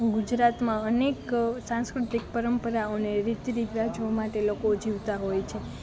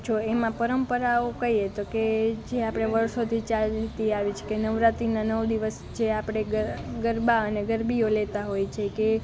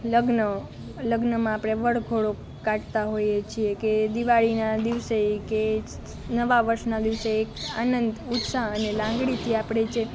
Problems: constant background noise